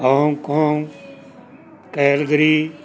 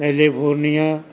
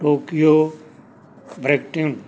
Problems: background sounds at intervals